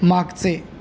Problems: none marked